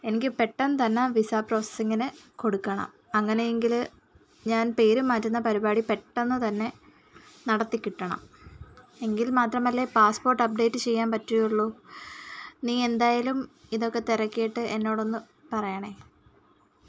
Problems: background sounds at intervals